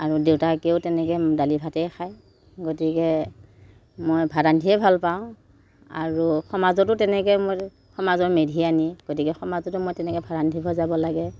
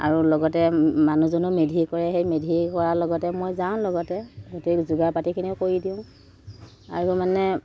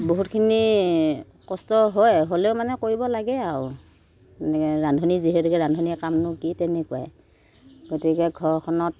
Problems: background sounds at intervals